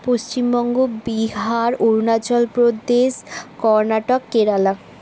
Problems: none marked